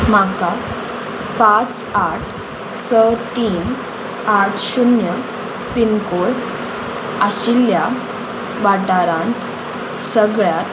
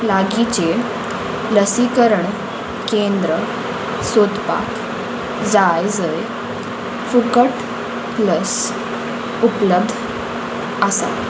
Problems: none marked